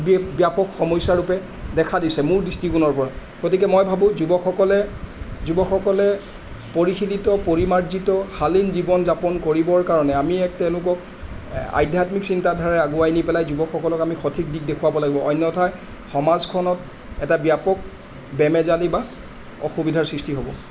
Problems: constant background noise